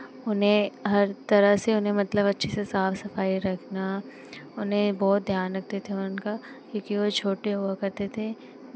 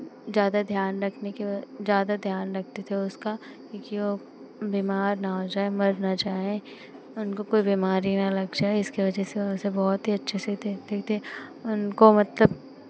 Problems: constant background noise